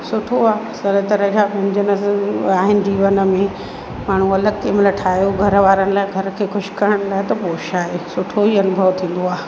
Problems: constant background noise, echo